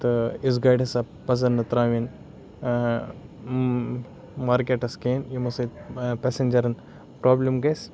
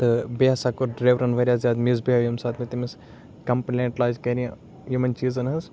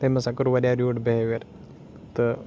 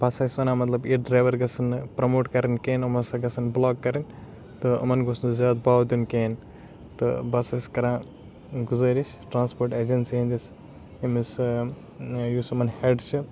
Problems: background sounds at intervals